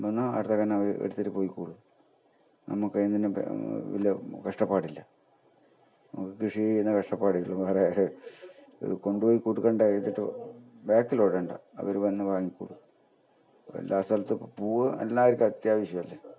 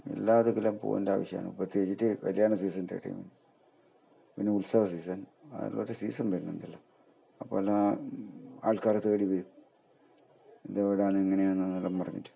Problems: low volume